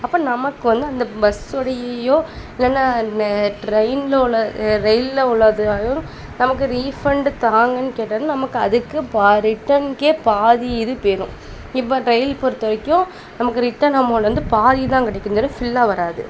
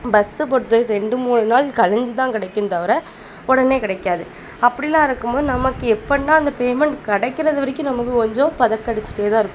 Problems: constant background noise